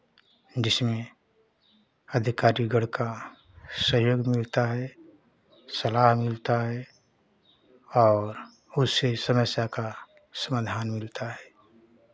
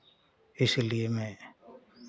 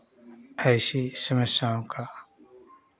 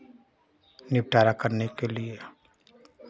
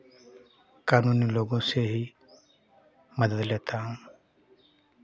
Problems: constant background noise, continuous background conversations